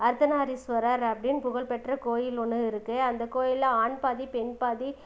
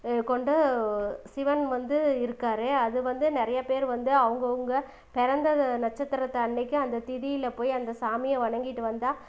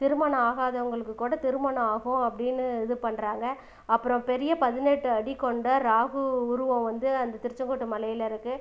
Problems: background sounds at intervals